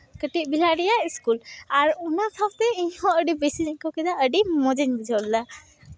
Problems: background sounds at intervals, continuous background conversations